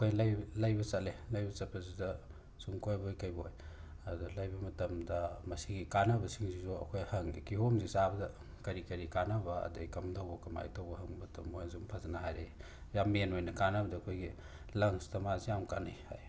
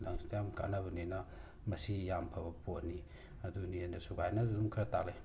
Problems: background sounds at intervals